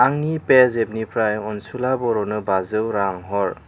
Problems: constant background noise